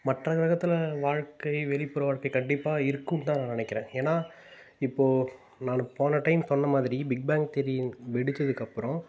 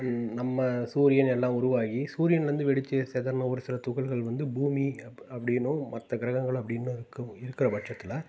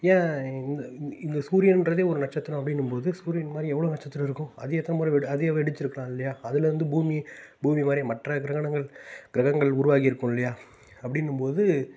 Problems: background sounds at intervals